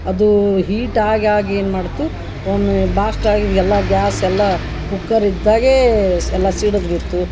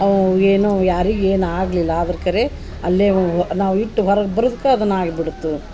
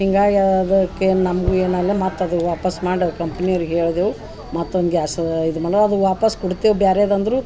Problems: background sounds at intervals